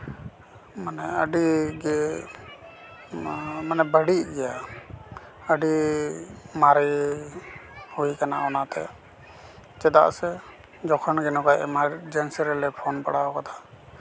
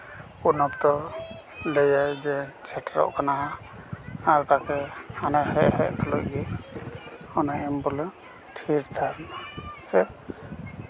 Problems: background conversations at intervals